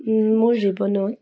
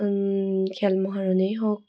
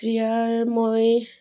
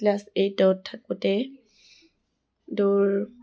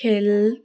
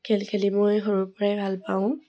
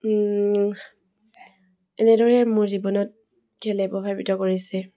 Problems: none marked